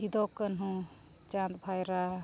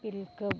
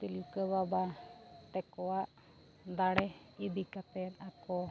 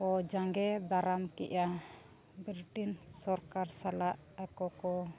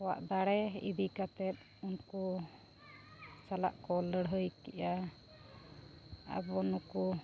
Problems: constant background noise, background conversations at intervals, low volume